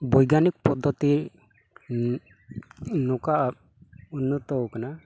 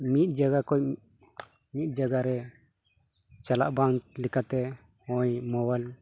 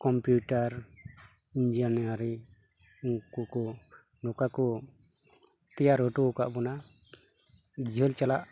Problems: none marked